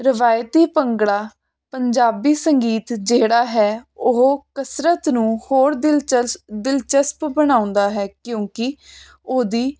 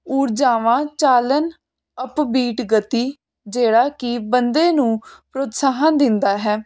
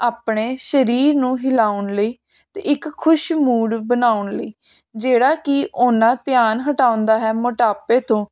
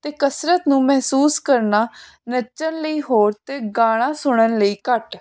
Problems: constant background noise